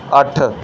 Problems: background sounds at intervals